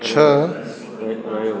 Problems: constant background noise, echo